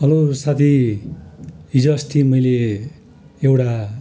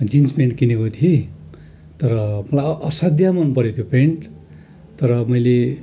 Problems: continuous background conversations